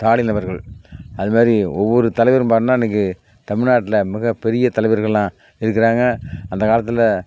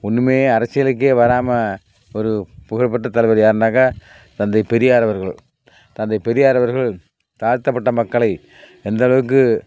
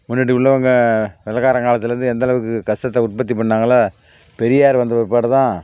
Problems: none marked